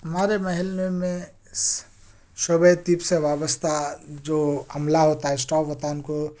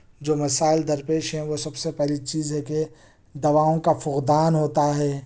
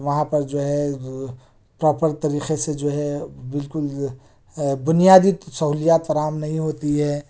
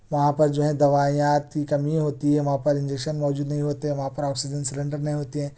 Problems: none marked